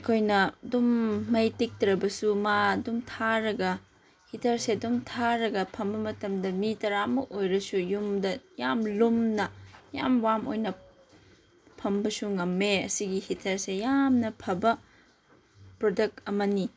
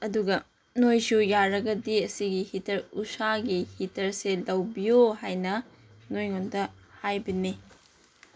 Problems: none marked